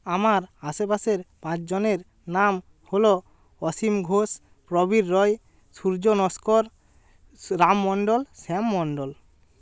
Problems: none marked